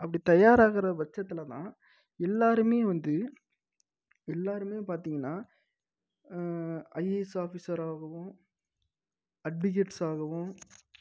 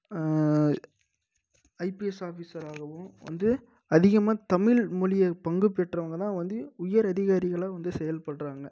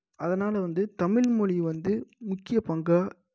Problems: low volume